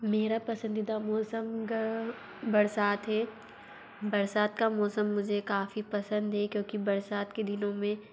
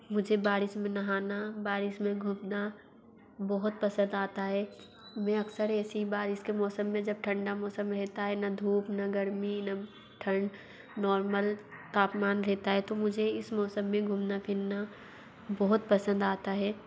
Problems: background sounds at intervals, low volume